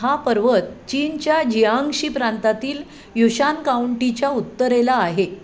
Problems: constant background noise